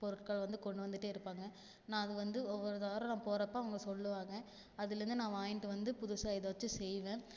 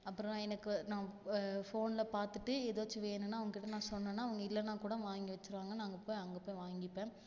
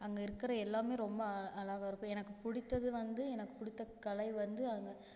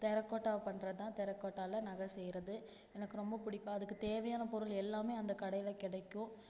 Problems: low volume